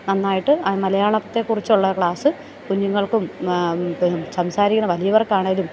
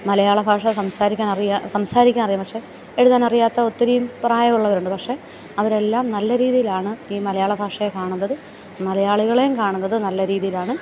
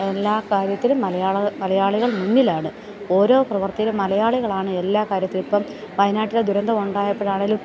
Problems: continuous background conversations